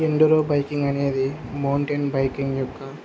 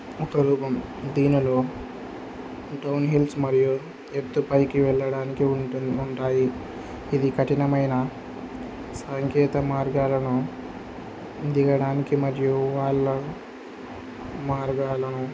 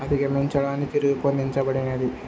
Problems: constant background noise